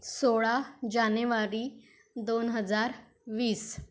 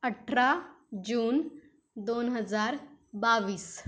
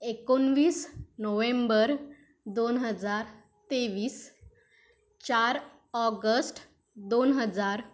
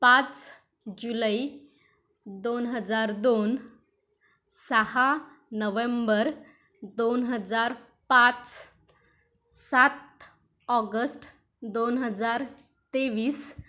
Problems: none marked